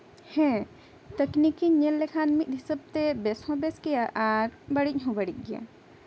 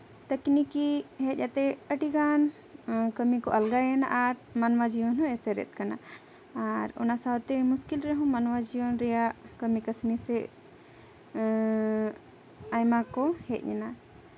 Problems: constant background noise